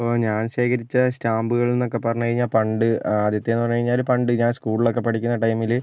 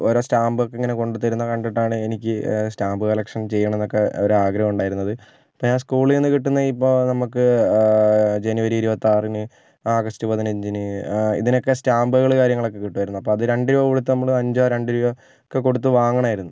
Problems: none marked